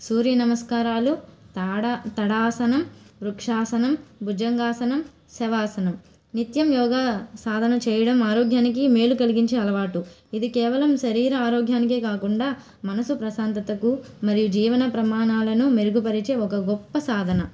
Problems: none marked